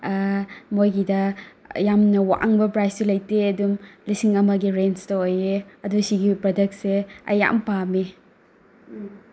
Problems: background sounds at intervals